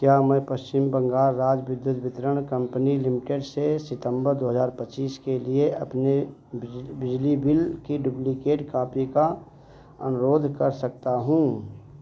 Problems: constant background noise